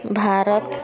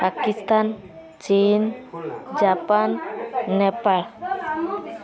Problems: constant background noise, continuous background conversations